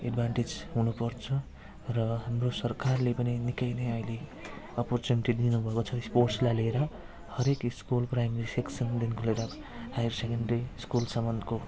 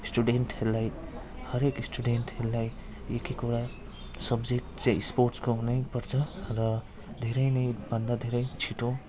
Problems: none marked